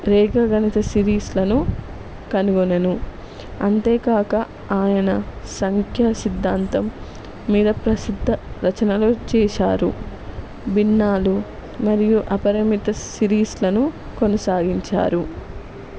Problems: none marked